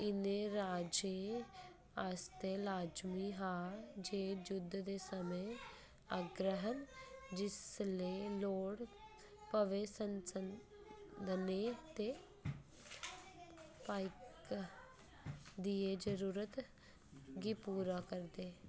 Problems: constant background noise, background conversations at intervals